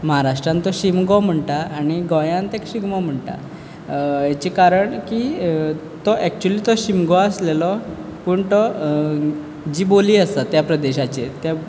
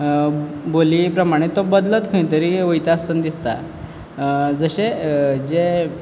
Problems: none marked